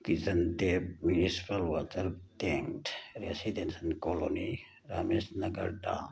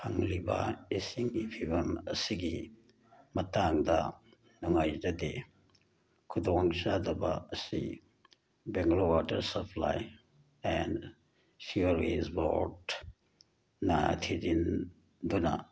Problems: background sounds at intervals